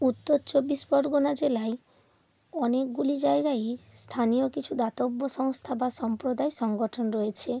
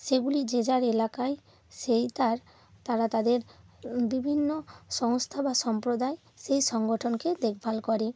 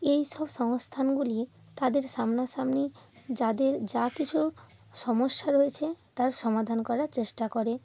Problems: constant background noise